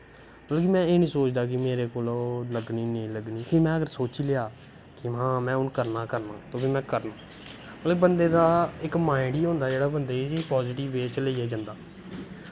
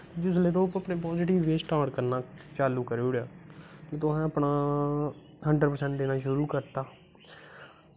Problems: constant background noise